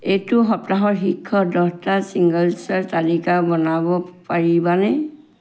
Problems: none marked